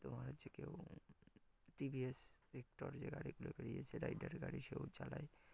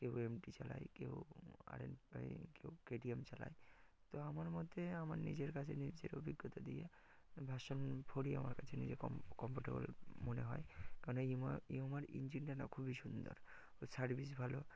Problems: background sounds at intervals